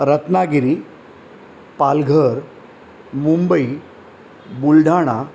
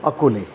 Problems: constant background noise